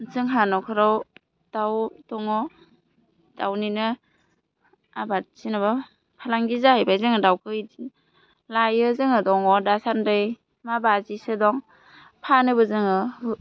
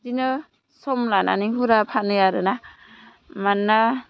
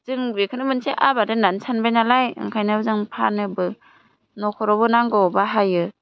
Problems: none marked